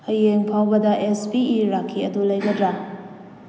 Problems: background sounds at intervals